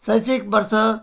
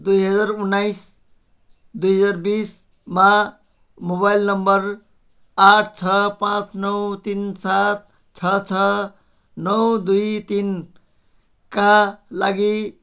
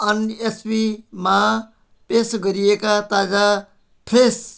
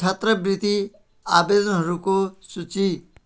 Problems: none marked